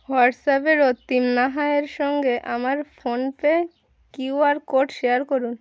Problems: constant background noise